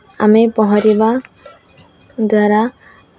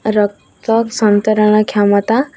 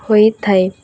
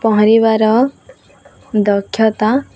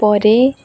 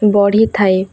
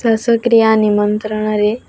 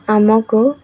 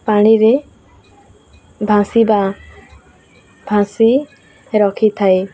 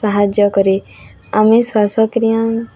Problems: continuous background conversations